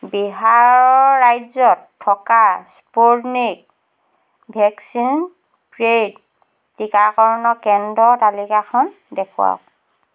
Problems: constant background noise